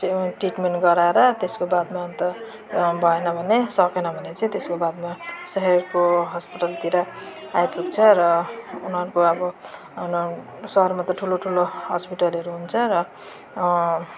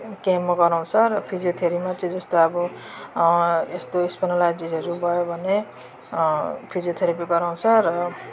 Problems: constant background noise